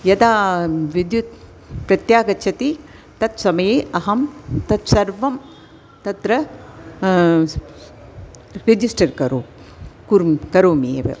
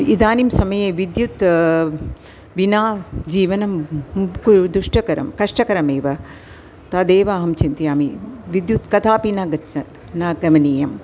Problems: constant background noise